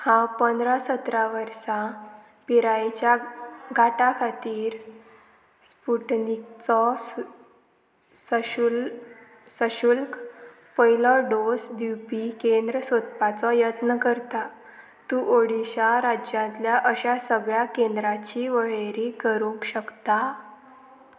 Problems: constant background noise